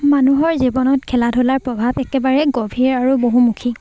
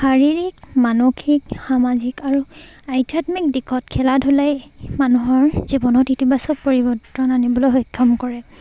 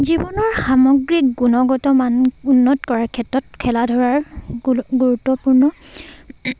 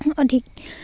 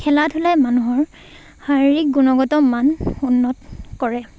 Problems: constant background noise, background conversations at intervals